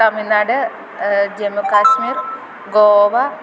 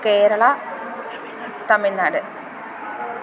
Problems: none marked